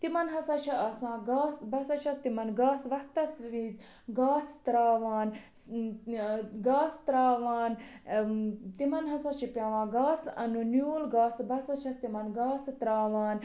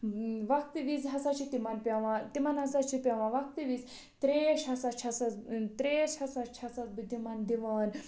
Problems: constant background noise